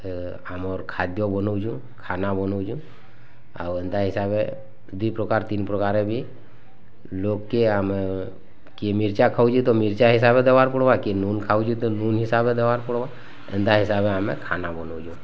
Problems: none marked